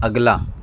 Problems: none marked